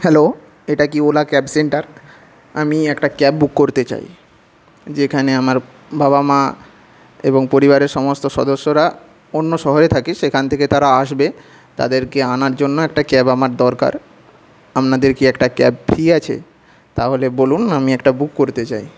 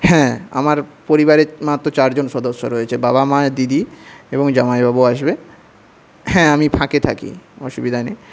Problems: none marked